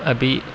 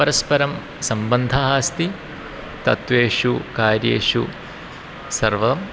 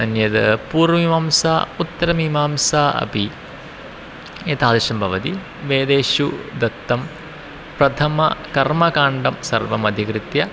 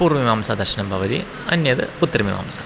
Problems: constant background noise